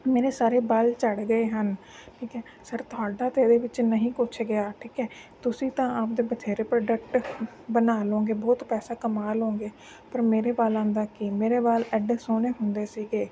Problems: constant background noise